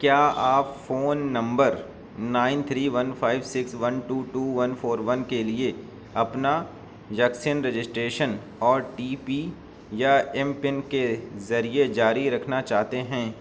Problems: none marked